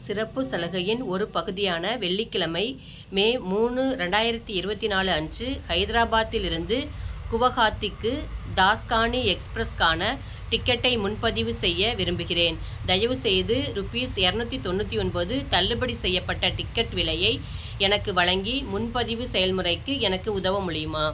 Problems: none marked